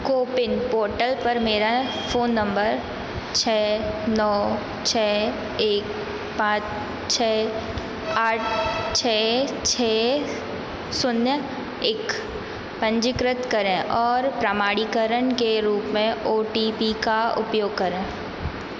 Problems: constant background noise, echo